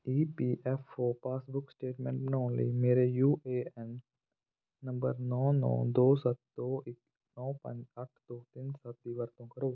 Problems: none marked